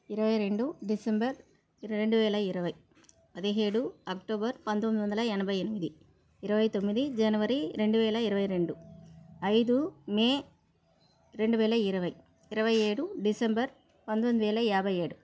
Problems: background sounds at intervals